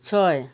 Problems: none marked